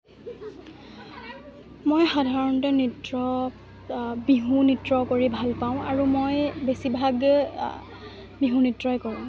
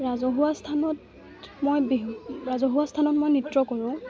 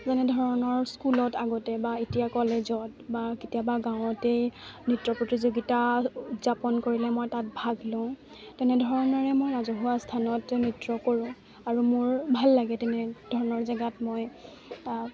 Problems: none marked